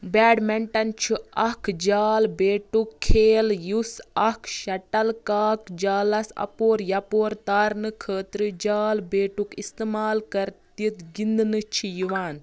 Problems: background sounds at intervals